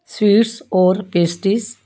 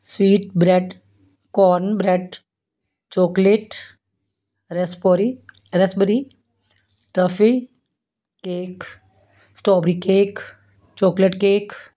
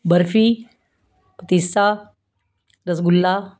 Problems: background sounds at intervals